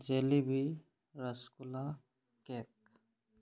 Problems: none marked